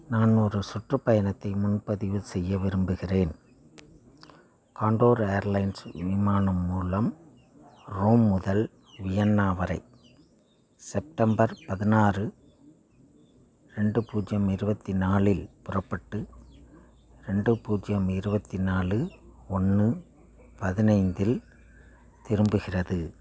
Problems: none marked